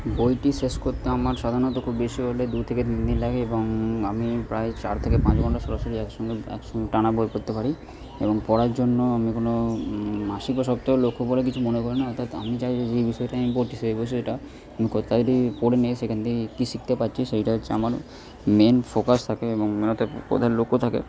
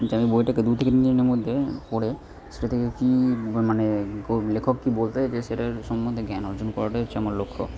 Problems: constant background noise